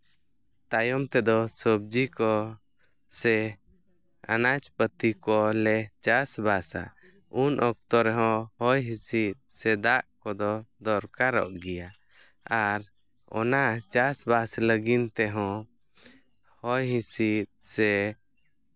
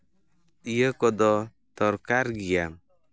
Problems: none marked